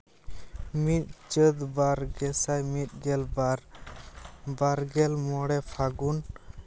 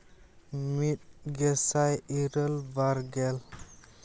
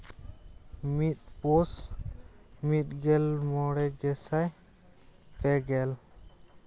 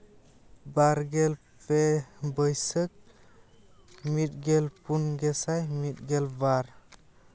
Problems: constant background noise, background conversations at intervals